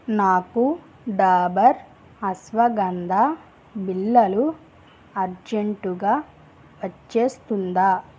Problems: none marked